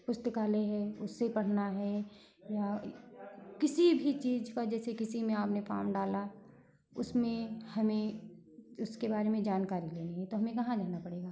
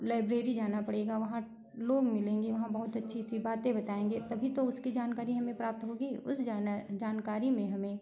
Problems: constant background noise, continuous background conversations